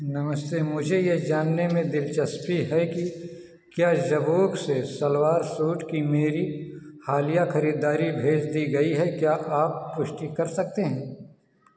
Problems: echo, low volume